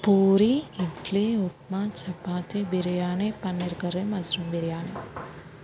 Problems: constant background noise